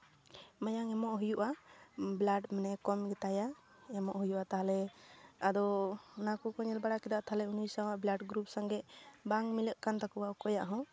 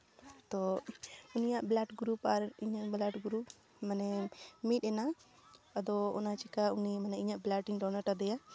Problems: background conversations at intervals